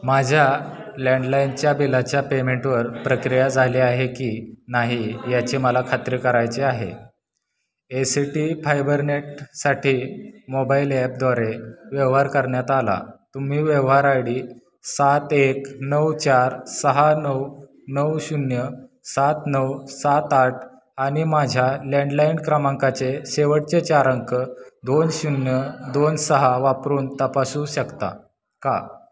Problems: constant background noise, continuous background conversations